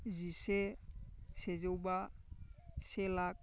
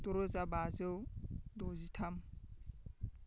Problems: constant background noise